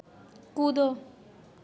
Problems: none marked